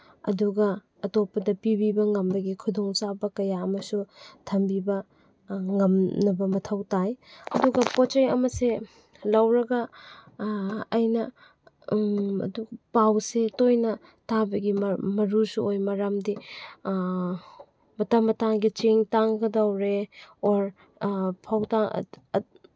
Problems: background sounds at intervals